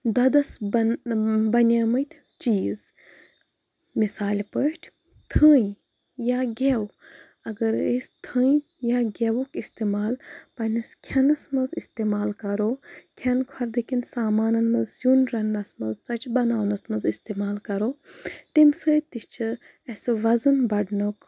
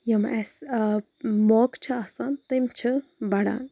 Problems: background sounds at intervals